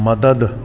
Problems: constant background noise, echo